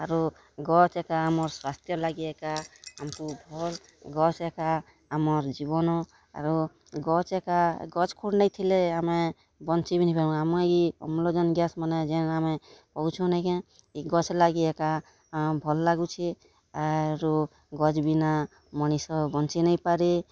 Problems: background sounds at intervals, background conversations at intervals